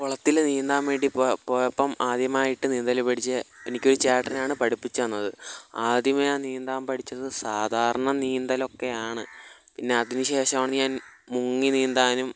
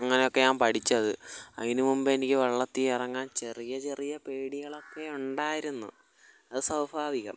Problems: background sounds at intervals